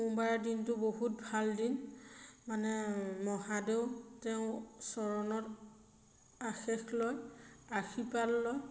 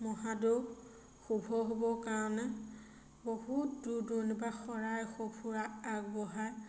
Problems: constant background noise, echo